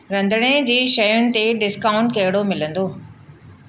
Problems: constant background noise